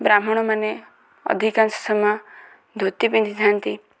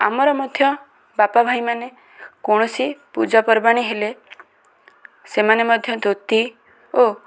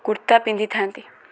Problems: constant background noise, continuous background conversations